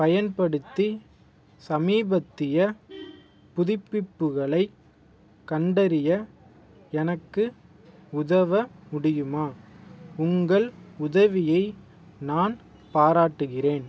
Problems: none marked